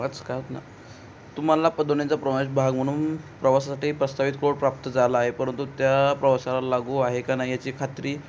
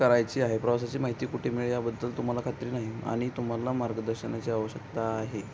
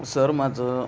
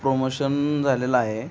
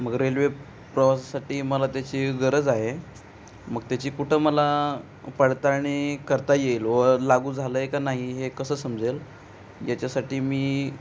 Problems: constant background noise